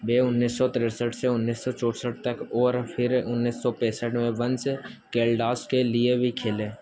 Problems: constant background noise